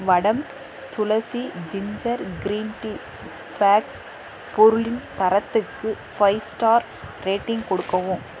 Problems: none marked